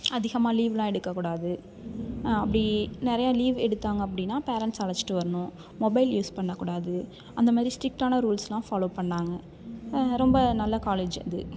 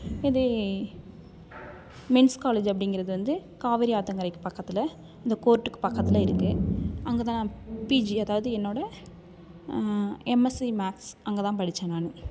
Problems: background sounds at intervals, continuous background conversations